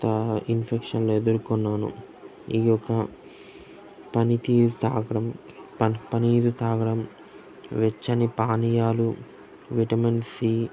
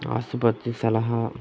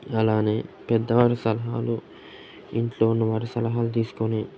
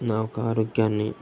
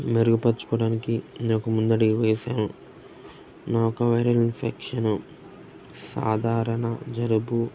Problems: constant background noise, background conversations at intervals